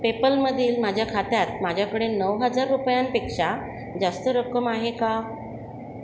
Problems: constant background noise